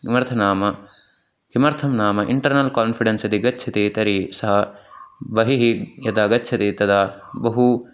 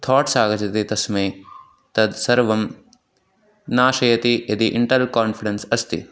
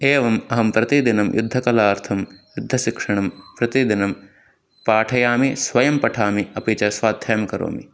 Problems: none marked